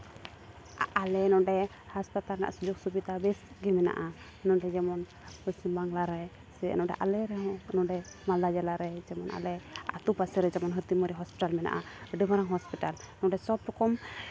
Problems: background sounds at intervals